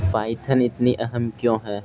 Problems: constant background noise